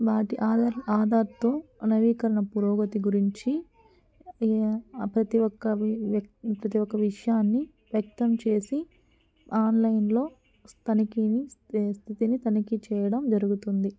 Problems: background sounds at intervals